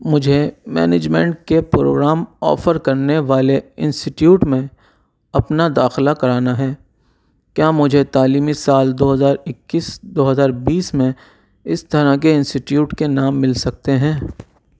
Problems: none marked